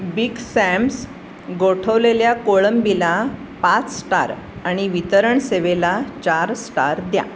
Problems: constant background noise